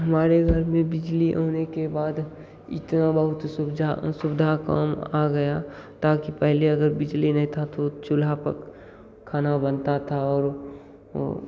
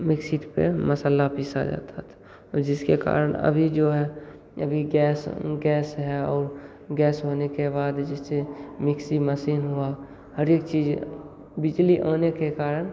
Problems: constant background noise